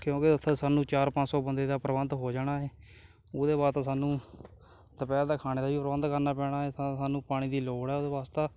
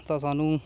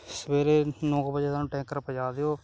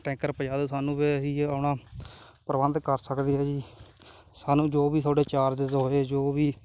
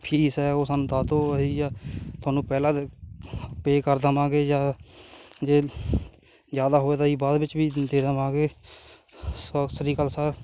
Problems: background sounds at intervals